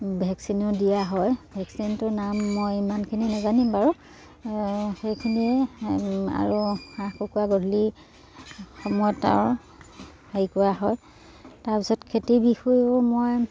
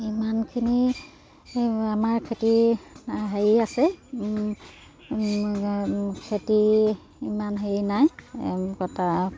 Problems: constant background noise